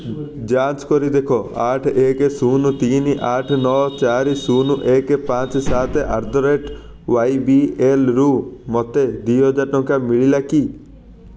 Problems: constant background noise, background conversations at intervals